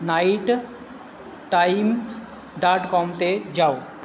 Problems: none marked